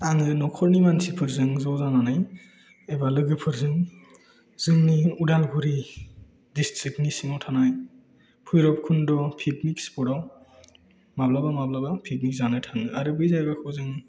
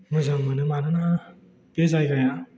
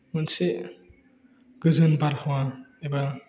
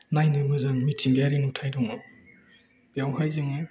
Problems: none marked